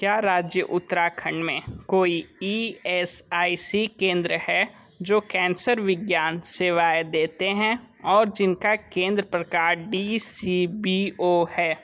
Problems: none marked